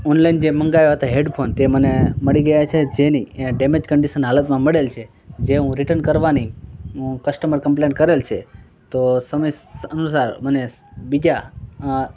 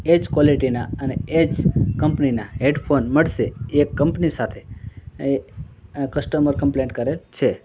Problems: background conversations at intervals